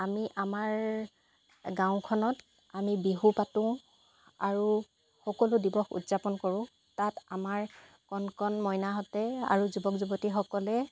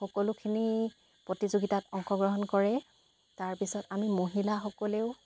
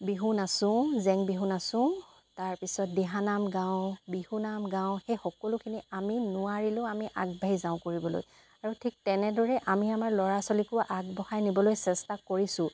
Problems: none marked